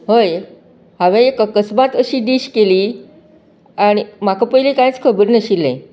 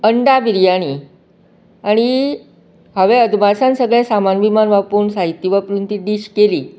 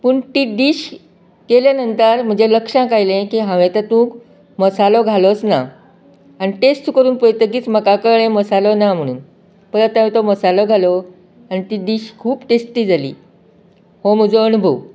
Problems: none marked